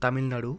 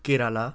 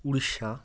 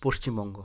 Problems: background sounds at intervals